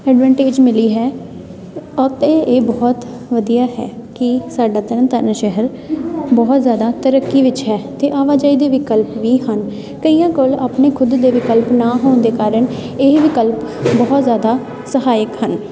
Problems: constant background noise, continuous background conversations